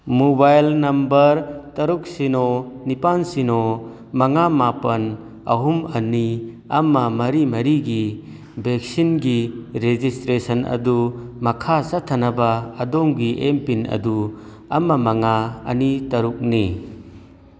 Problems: none marked